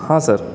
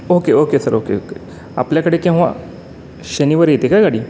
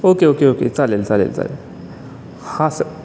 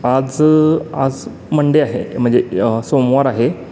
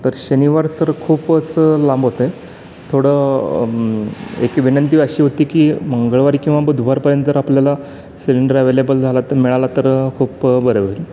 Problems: none marked